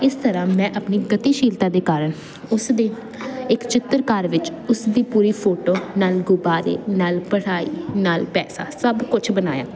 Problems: constant background noise